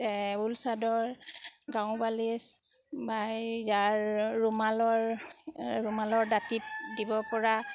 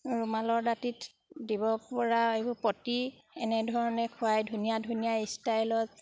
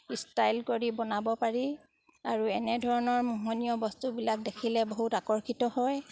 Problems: background sounds at intervals